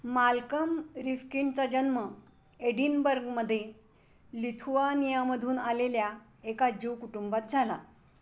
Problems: constant background noise